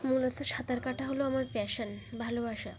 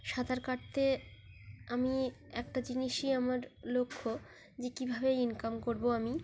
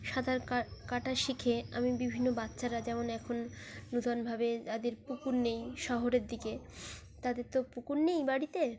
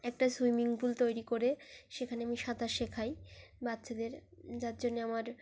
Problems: constant background noise, continuous background conversations